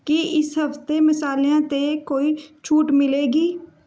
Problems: none marked